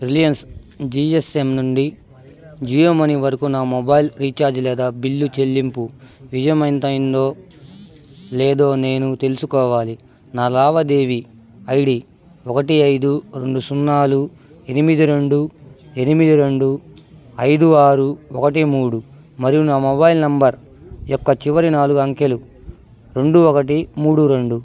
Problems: none marked